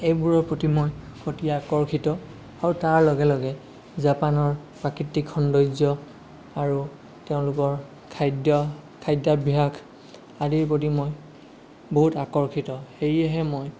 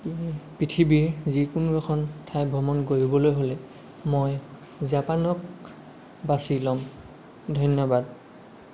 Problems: none marked